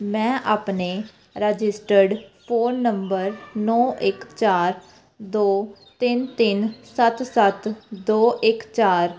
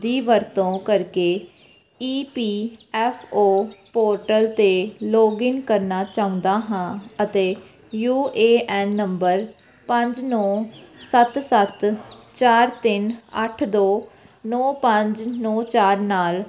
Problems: constant background noise